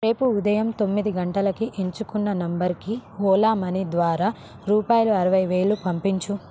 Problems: constant background noise